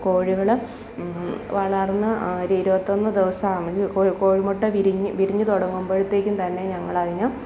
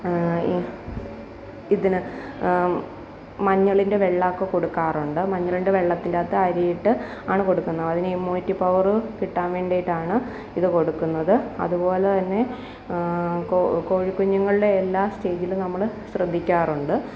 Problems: constant background noise